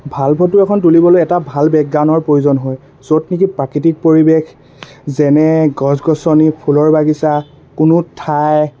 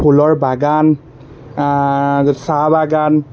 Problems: constant background noise